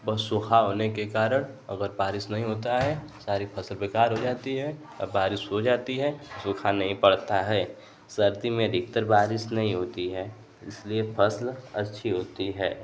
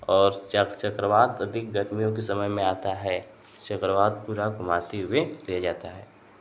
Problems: none marked